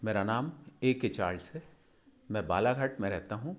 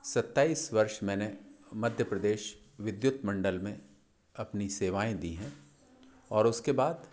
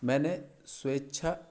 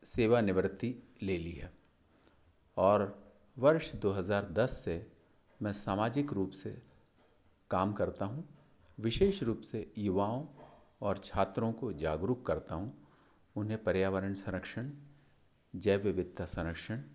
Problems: constant background noise